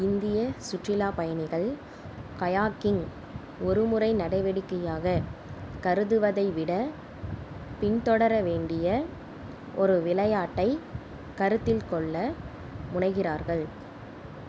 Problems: none marked